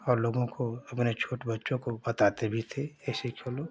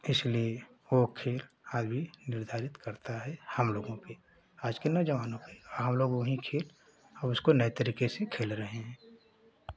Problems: none marked